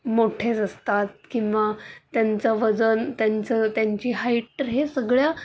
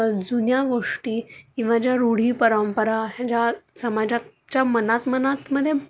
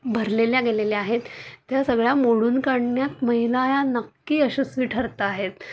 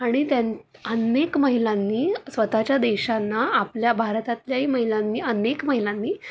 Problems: none marked